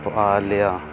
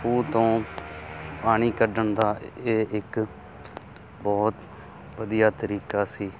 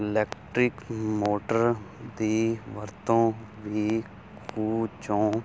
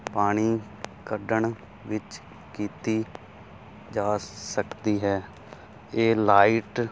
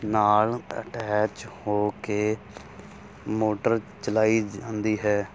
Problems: constant background noise